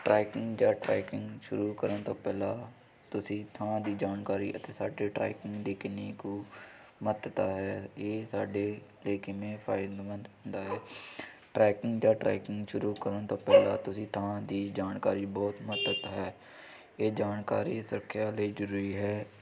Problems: background sounds at intervals